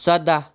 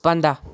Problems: none marked